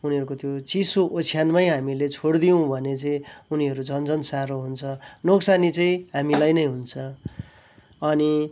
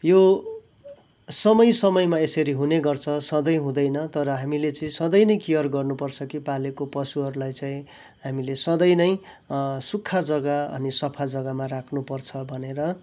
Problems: background sounds at intervals